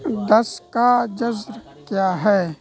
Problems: constant background noise